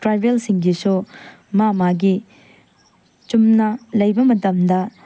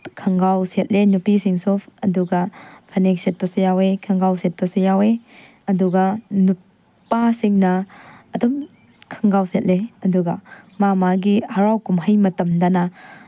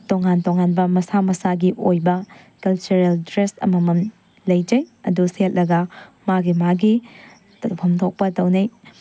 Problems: none marked